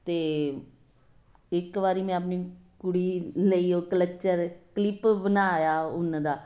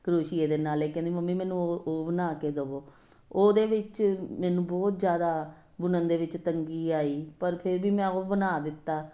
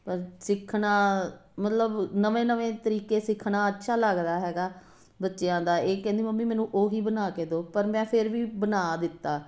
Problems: constant background noise